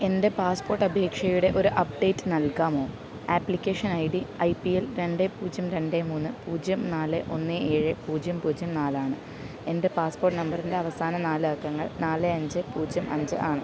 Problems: background sounds at intervals